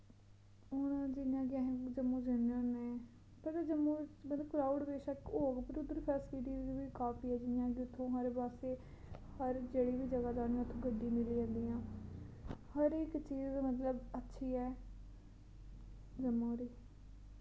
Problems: constant background noise